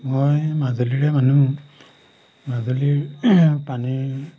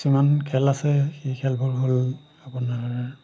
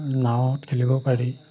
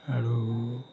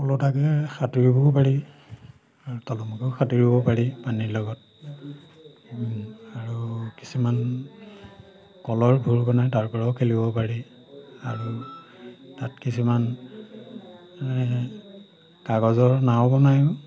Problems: background sounds at intervals